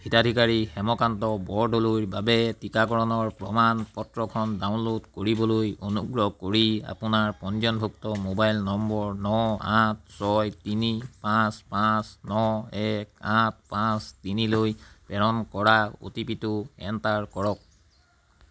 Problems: constant background noise